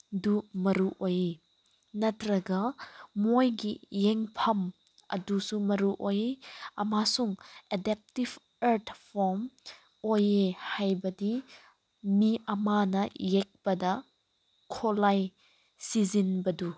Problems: none marked